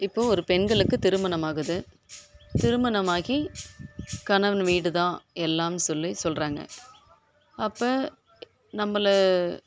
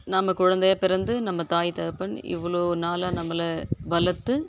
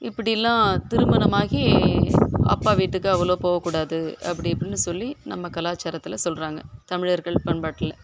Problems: background sounds at intervals